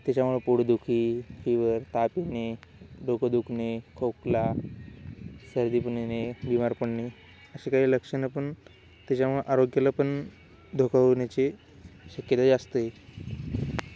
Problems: constant background noise